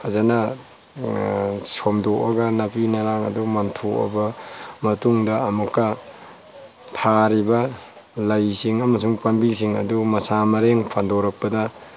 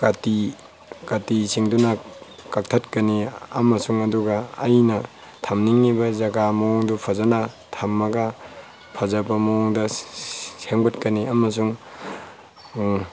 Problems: background sounds at intervals